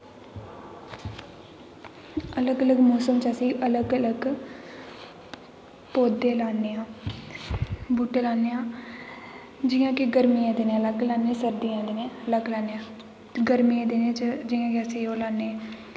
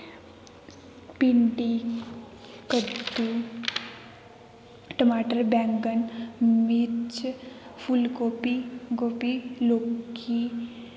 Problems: constant background noise, background conversations at intervals, echo